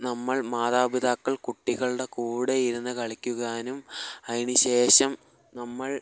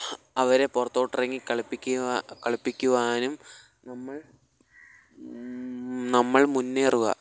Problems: background sounds at intervals, low volume